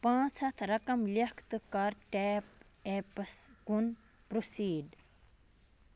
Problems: constant background noise